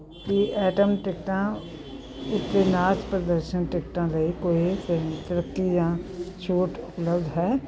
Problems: background conversations at intervals